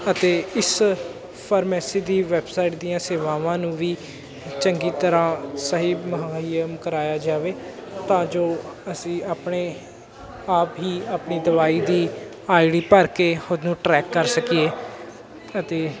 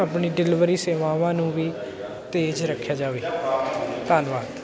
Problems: constant background noise, background conversations at intervals